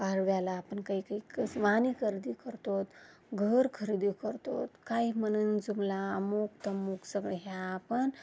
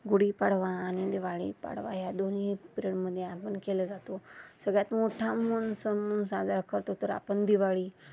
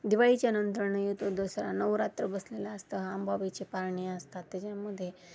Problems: constant background noise